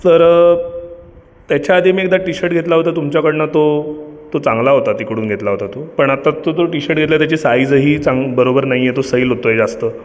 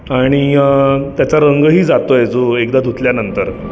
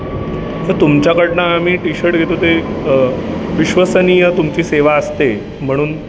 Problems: constant background noise